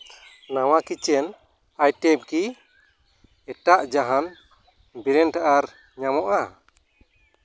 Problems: background sounds at intervals